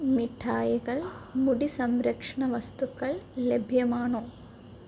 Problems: none marked